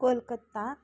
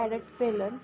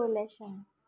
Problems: constant background noise, background conversations at intervals